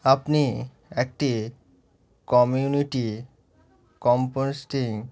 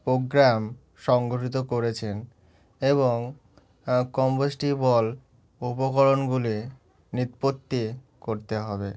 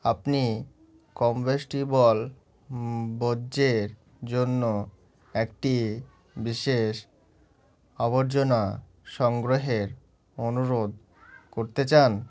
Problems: background sounds at intervals